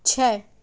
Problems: none marked